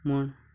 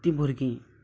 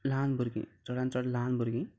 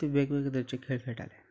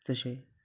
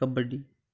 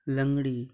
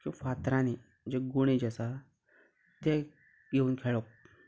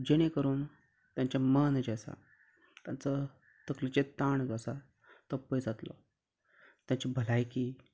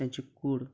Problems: background sounds at intervals